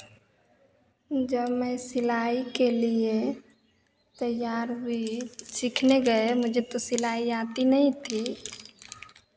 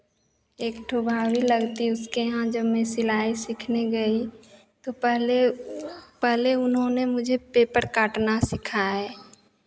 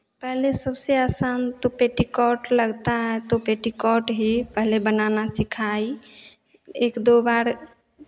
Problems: constant background noise, echo